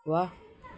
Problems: background sounds at intervals